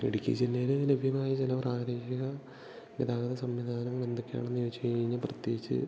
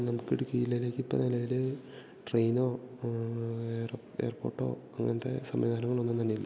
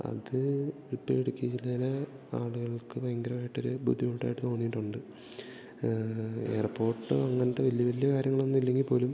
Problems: none marked